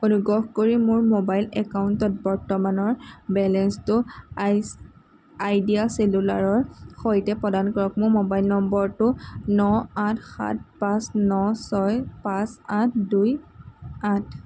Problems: constant background noise